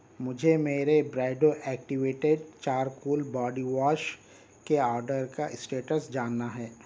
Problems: constant background noise